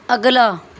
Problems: none marked